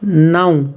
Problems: constant background noise